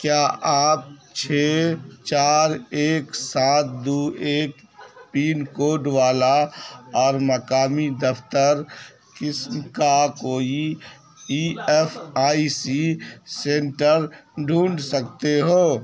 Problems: constant background noise